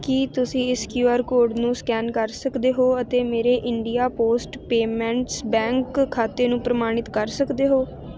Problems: none marked